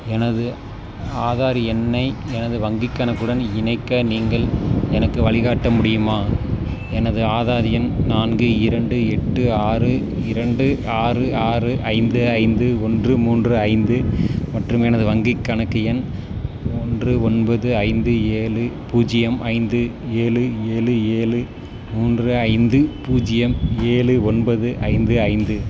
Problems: constant background noise